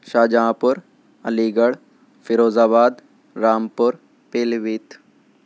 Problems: none marked